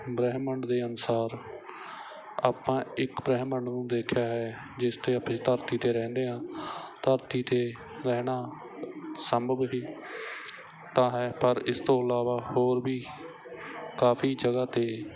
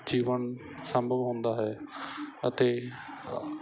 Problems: none marked